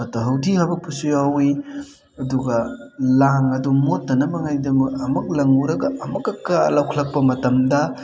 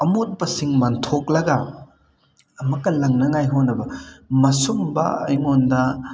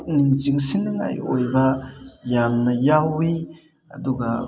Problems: none marked